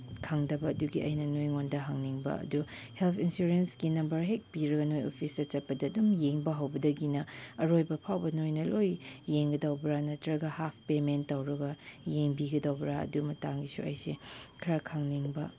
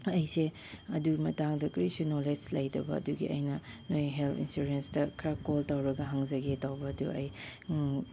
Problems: none marked